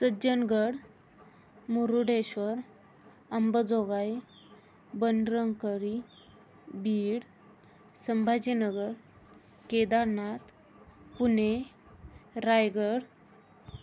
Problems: constant background noise